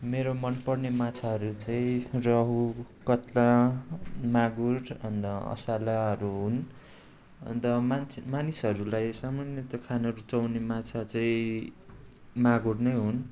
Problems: background sounds at intervals